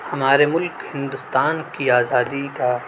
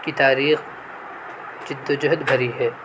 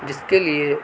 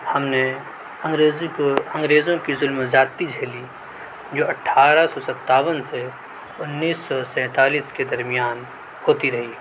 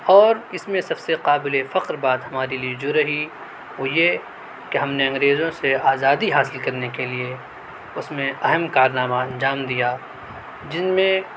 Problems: none marked